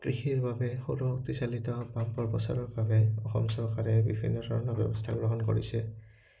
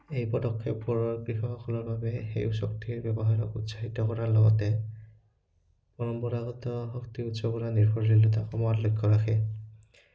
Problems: background sounds at intervals